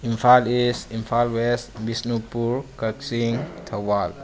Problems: low volume